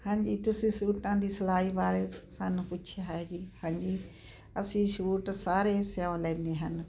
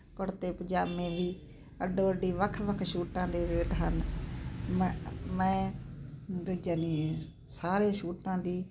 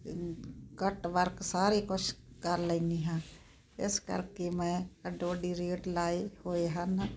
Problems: constant background noise